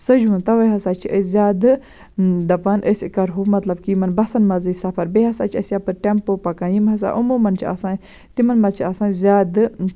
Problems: none marked